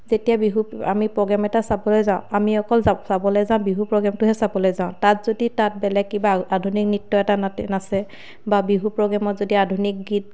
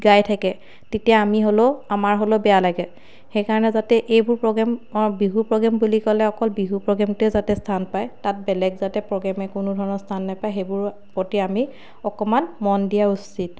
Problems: none marked